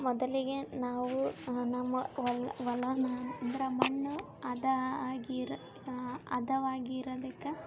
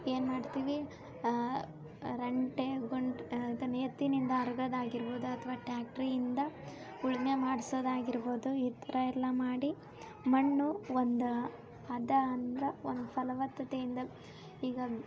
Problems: background sounds at intervals